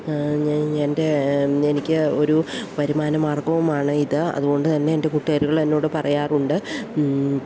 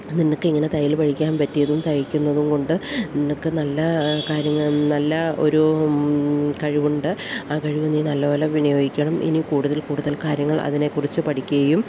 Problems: none marked